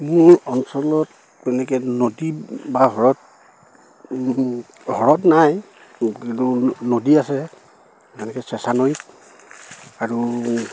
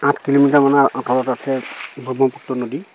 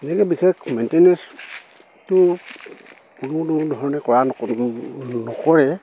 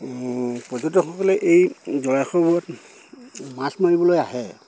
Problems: constant background noise